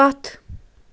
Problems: constant background noise